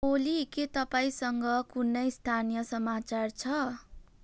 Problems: background sounds at intervals